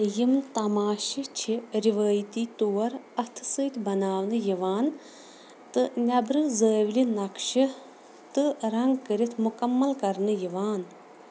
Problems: constant background noise